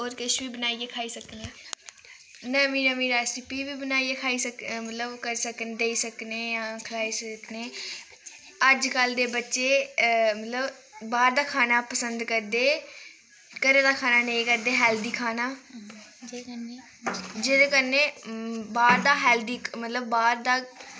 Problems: constant background noise, background conversations at intervals